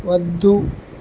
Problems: constant background noise